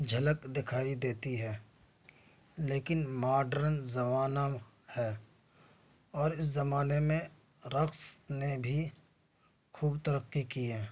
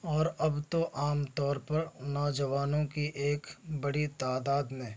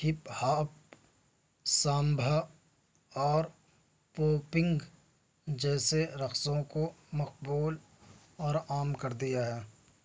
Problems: none marked